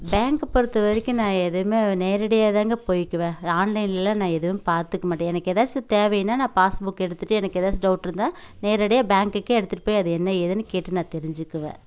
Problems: background sounds at intervals